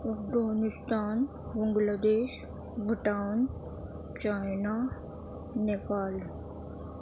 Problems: constant background noise